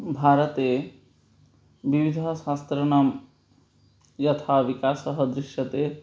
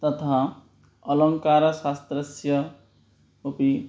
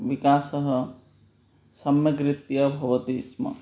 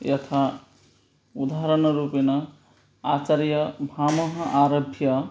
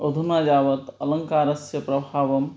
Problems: none marked